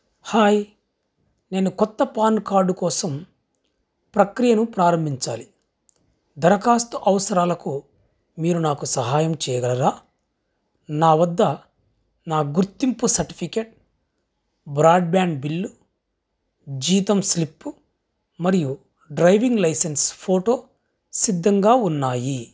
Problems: none marked